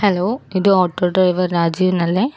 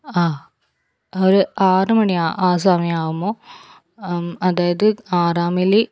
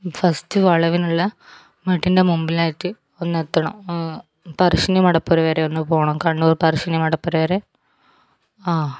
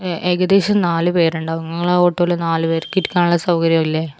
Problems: none marked